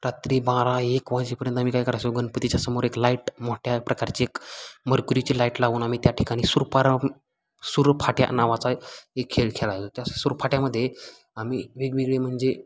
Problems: constant background noise, background conversations at intervals